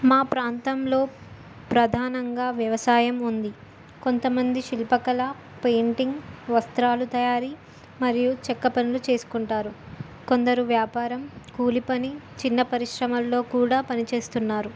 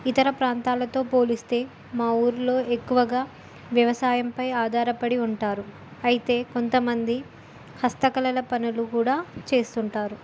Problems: none marked